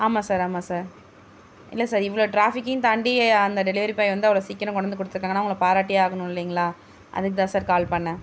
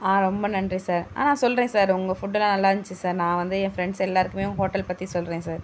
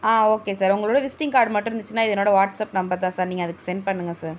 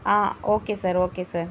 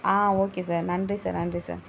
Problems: none marked